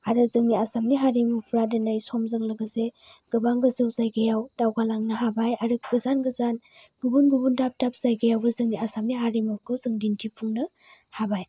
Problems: low volume